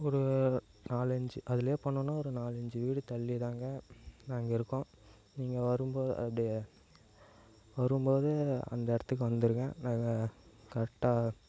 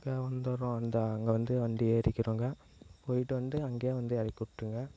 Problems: low volume